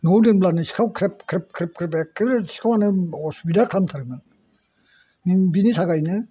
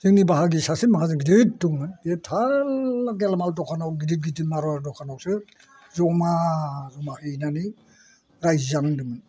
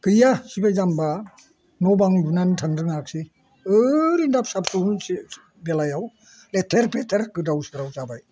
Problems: none marked